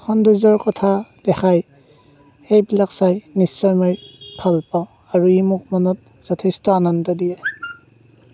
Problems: background sounds at intervals